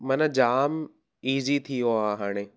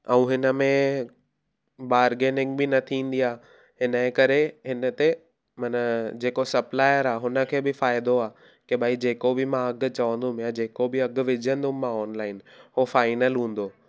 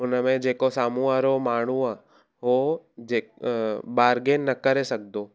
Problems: none marked